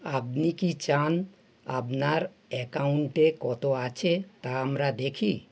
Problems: none marked